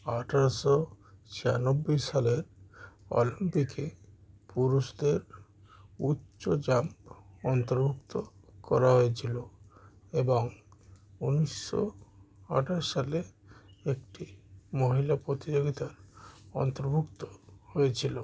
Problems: constant background noise